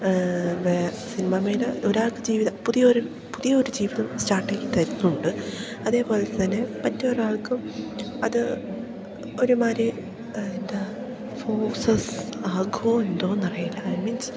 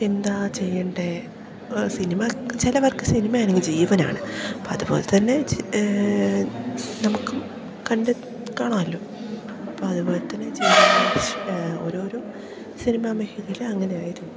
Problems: background sounds at intervals